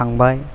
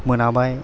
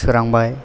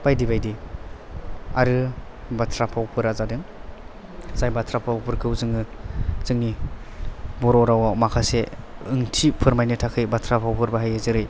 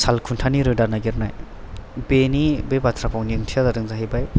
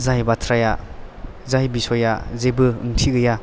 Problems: background sounds at intervals